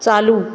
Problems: constant background noise, background conversations at intervals